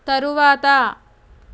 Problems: constant background noise